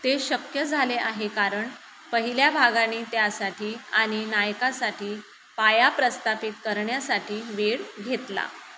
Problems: constant background noise